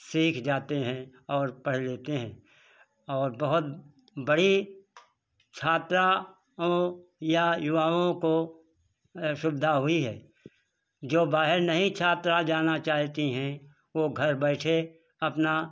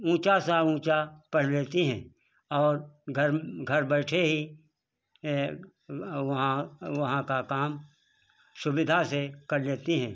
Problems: none marked